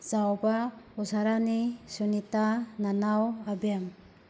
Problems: constant background noise